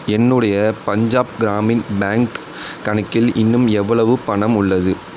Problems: none marked